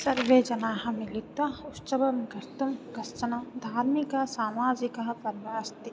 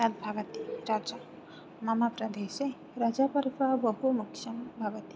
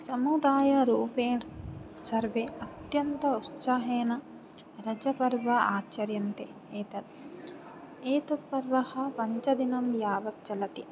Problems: background sounds at intervals